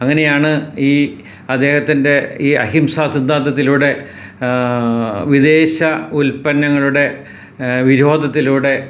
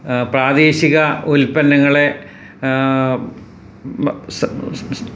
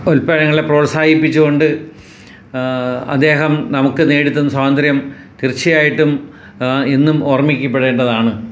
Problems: background sounds at intervals